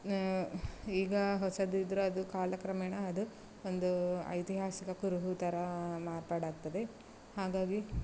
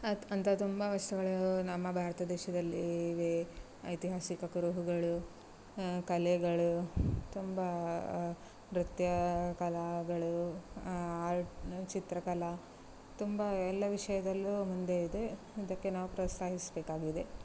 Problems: none marked